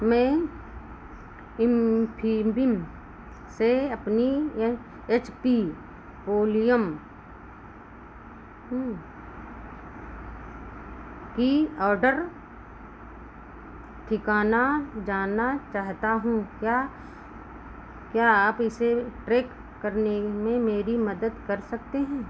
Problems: constant background noise